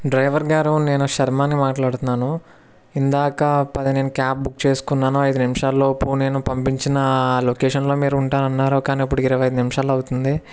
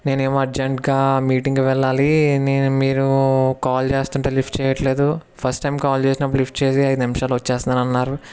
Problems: background sounds at intervals